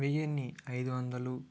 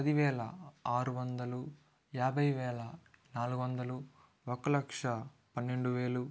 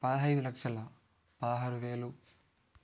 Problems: none marked